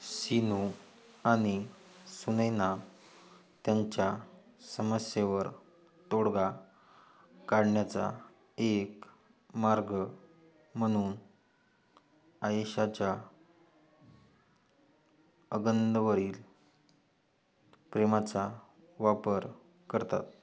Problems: background sounds at intervals